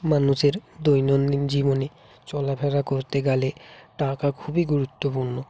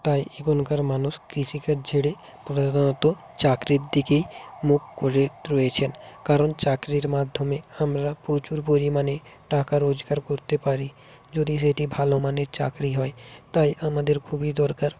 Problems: continuous background conversations